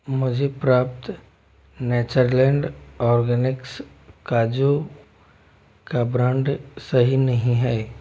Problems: none marked